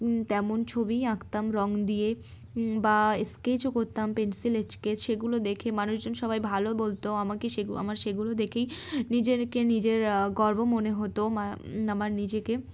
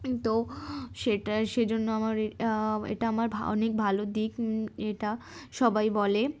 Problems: constant background noise